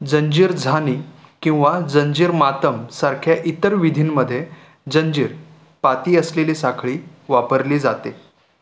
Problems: constant background noise